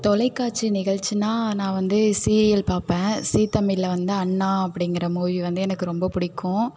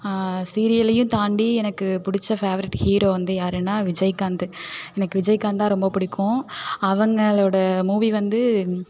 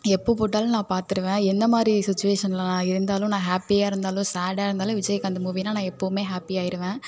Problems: constant background noise